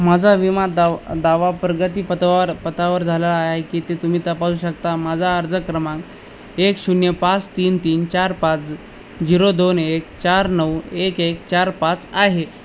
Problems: none marked